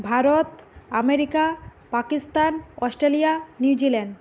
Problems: constant background noise